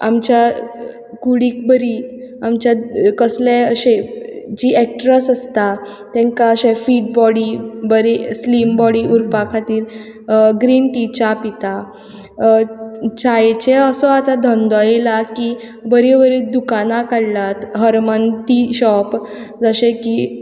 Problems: background sounds at intervals